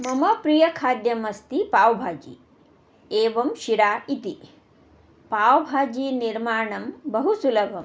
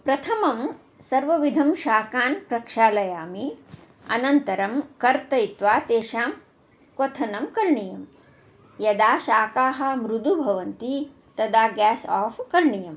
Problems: constant background noise